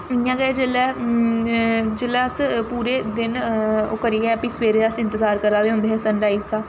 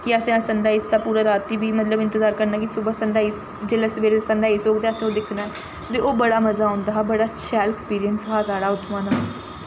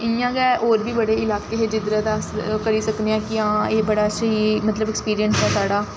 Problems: constant background noise